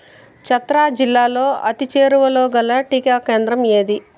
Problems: none marked